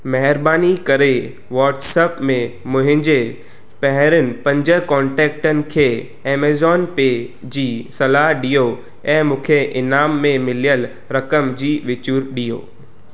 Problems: echo